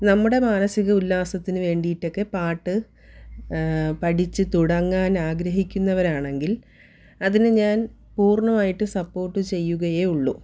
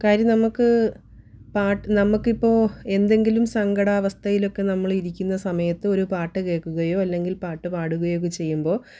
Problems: none marked